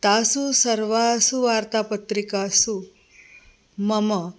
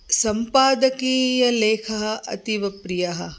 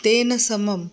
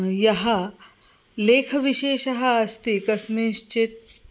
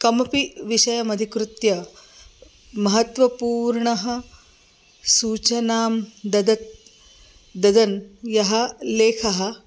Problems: constant background noise